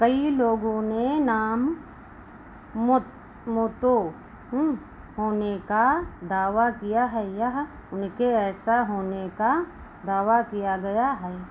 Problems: constant background noise